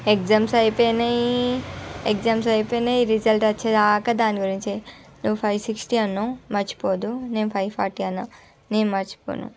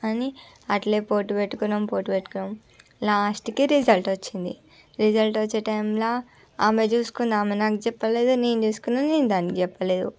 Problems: constant background noise, background conversations at intervals